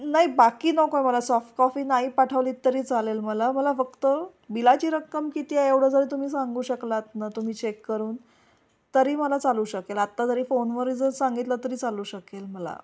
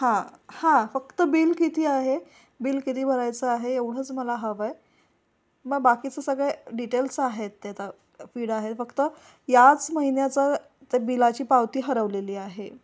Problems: constant background noise